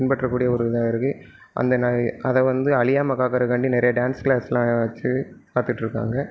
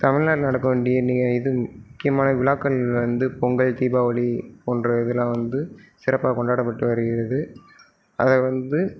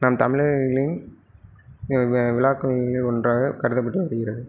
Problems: none marked